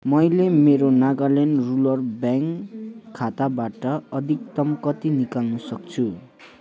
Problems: constant background noise